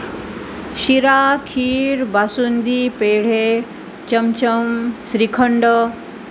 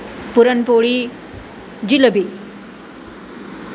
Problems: constant background noise